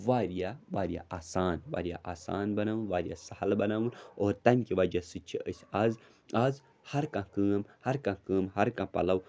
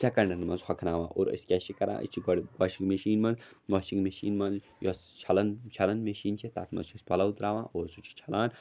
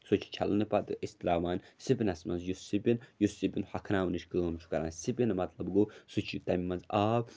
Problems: none marked